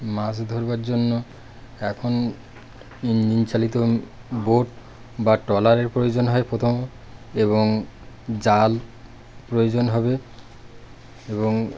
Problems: constant background noise